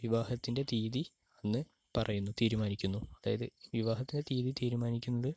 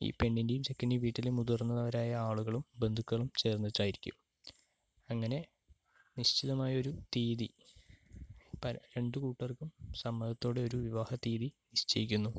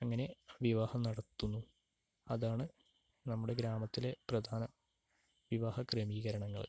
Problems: low volume